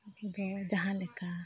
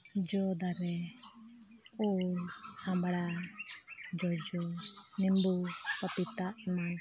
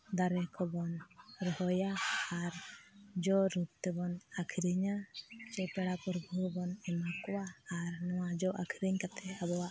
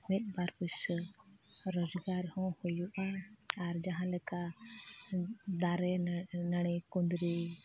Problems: background sounds at intervals